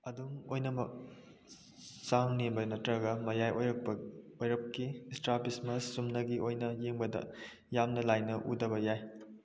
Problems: low volume